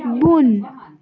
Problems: background sounds at intervals